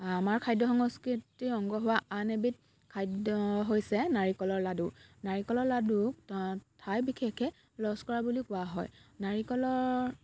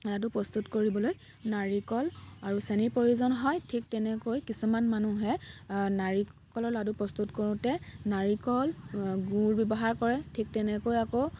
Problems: none marked